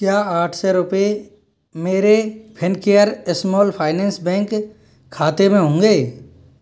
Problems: none marked